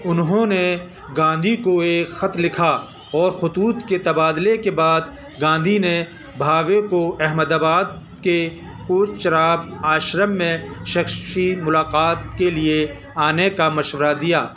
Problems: constant background noise, continuous background conversations